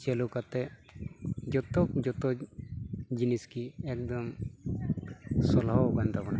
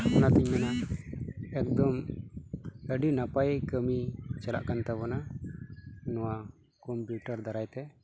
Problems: none marked